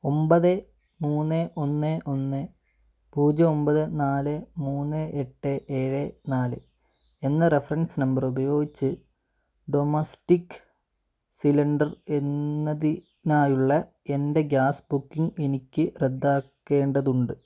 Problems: none marked